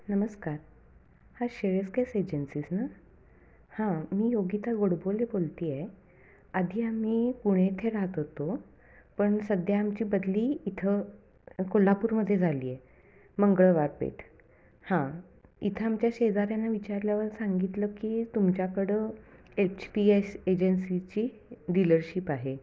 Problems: background sounds at intervals, echo